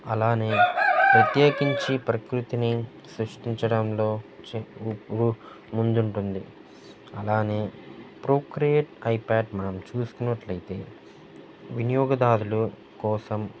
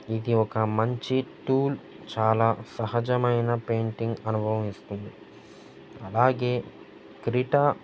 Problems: constant background noise, background conversations at intervals